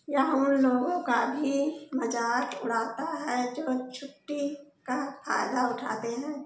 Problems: none marked